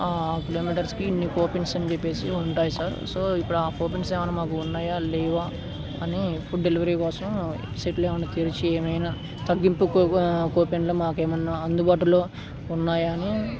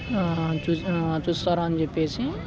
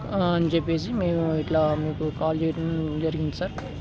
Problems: constant background noise